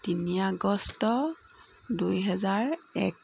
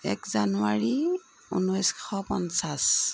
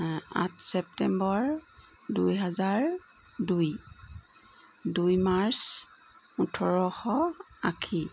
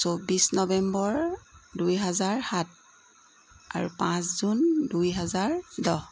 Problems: constant background noise